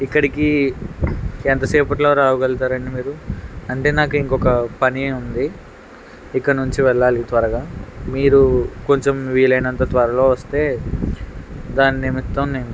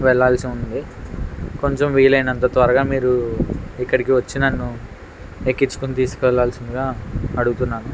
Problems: constant background noise